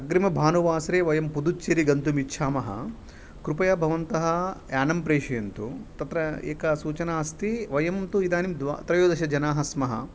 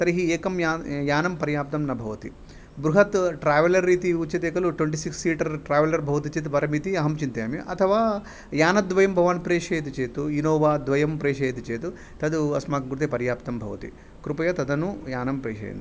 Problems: none marked